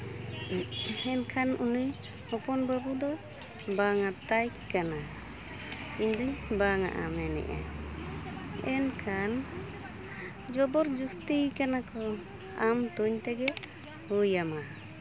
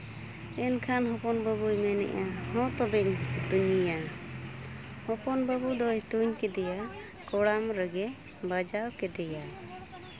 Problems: constant background noise, continuous background conversations